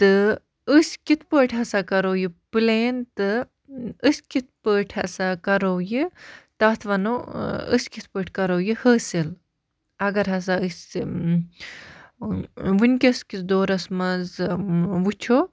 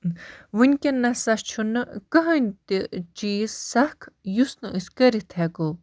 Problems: none marked